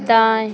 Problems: none marked